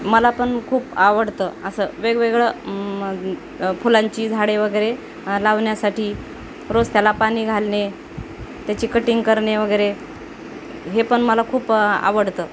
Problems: constant background noise